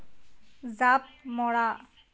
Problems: none marked